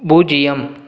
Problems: none marked